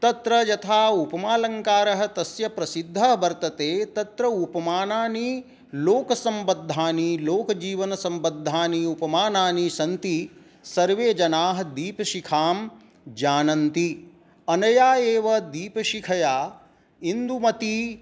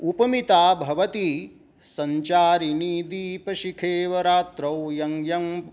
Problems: none marked